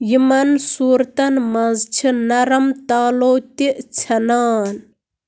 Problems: background sounds at intervals